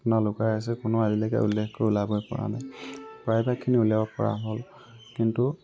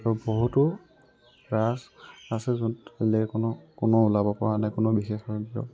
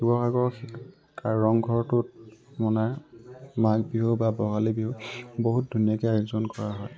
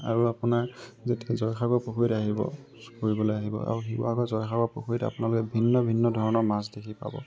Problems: constant background noise